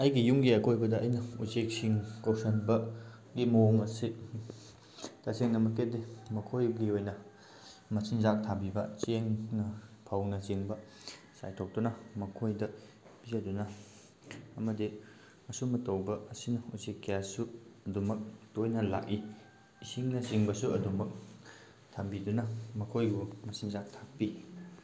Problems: background sounds at intervals